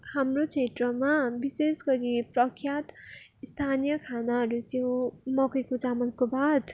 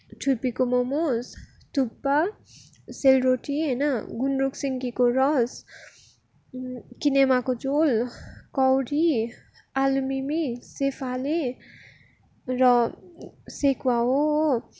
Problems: background sounds at intervals